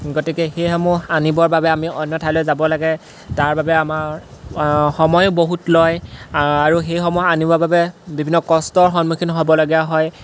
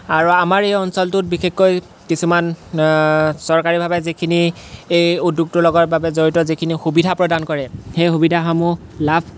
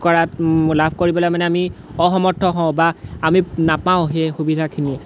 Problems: constant background noise